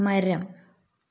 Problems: none marked